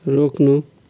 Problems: none marked